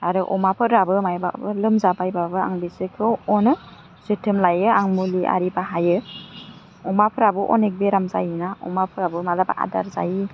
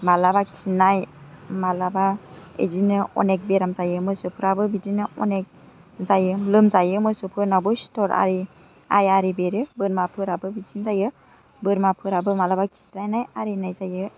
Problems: none marked